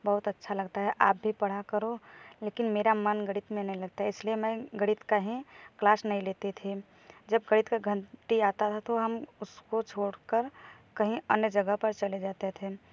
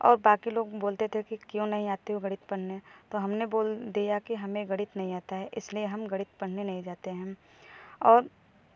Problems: none marked